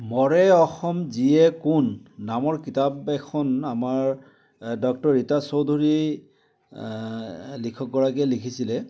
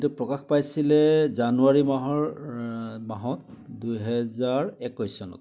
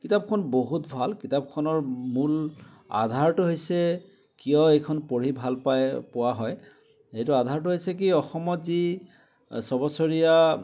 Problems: none marked